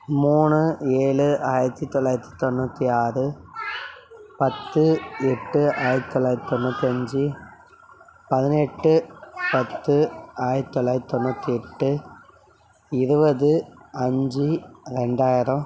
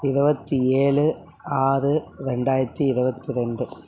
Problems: background conversations at intervals